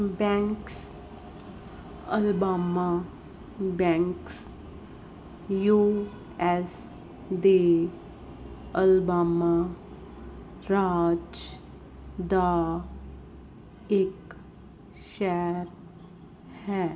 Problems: none marked